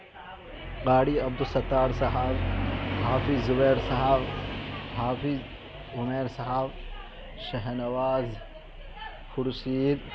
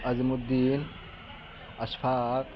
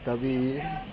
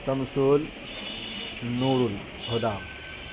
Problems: constant background noise